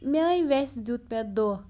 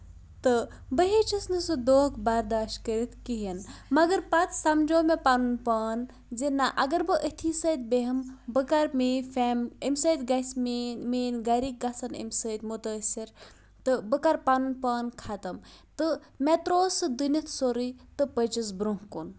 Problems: none marked